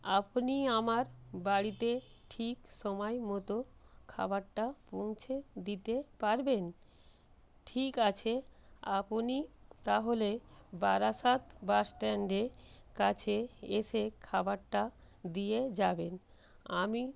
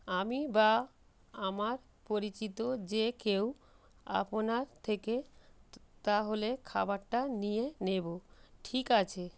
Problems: none marked